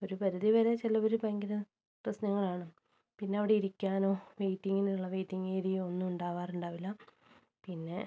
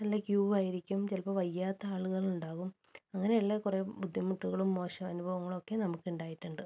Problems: none marked